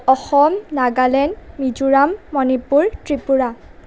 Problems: background conversations at intervals